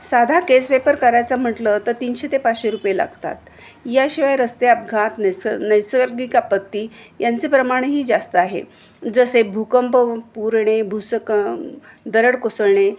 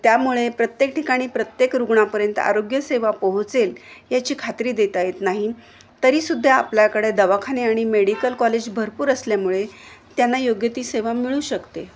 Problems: none marked